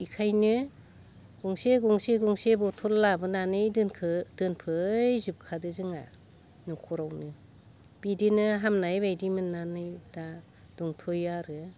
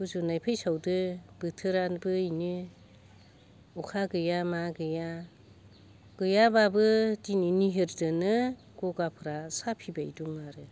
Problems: none marked